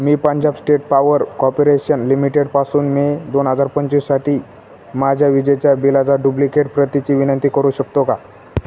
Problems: constant background noise